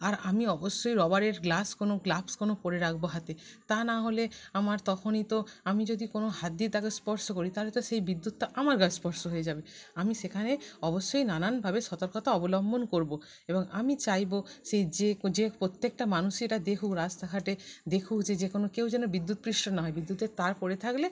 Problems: background sounds at intervals, continuous background conversations